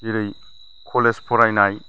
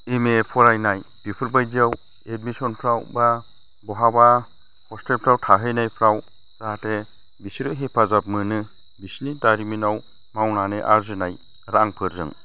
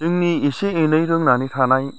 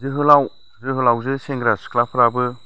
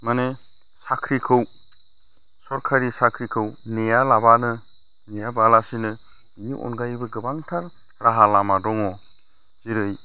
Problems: none marked